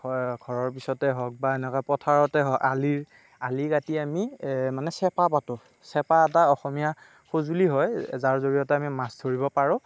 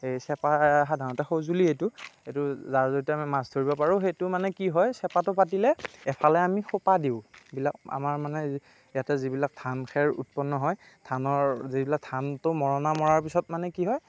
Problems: constant background noise, background conversations at intervals